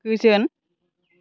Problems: none marked